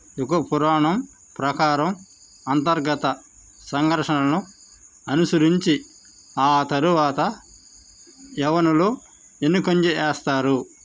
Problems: constant background noise